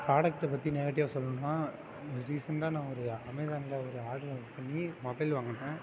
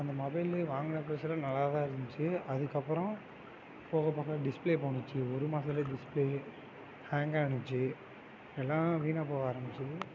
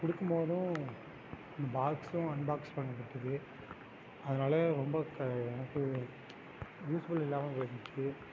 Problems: constant background noise